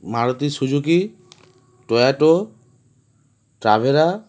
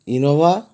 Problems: background sounds at intervals